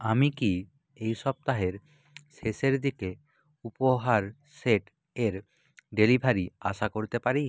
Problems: none marked